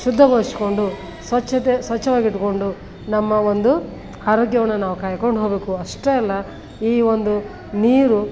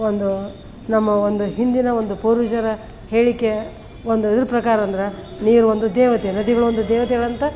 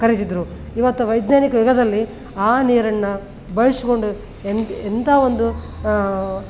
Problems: background sounds at intervals